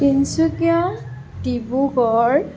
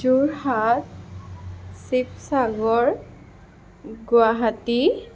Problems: constant background noise